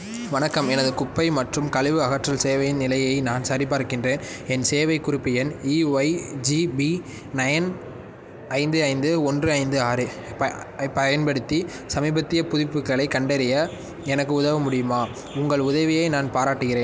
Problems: background sounds at intervals